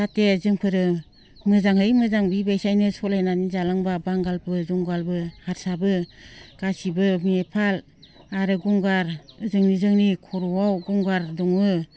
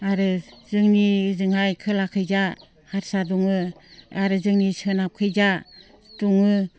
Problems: constant background noise